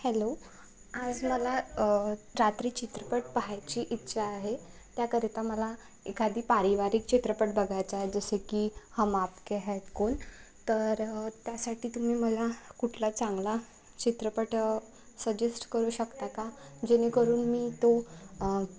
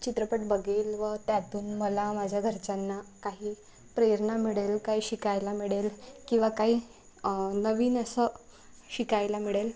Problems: constant background noise